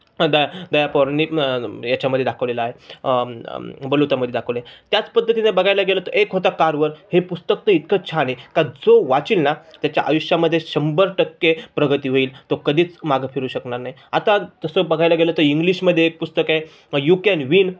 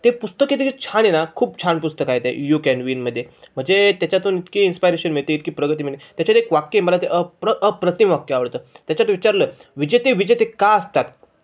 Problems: none marked